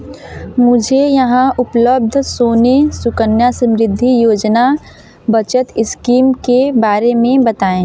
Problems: none marked